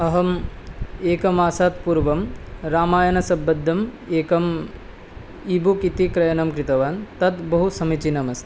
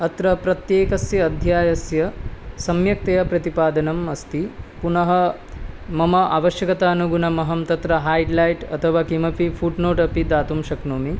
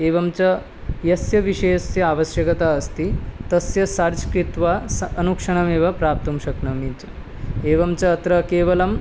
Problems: constant background noise